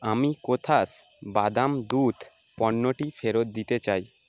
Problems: constant background noise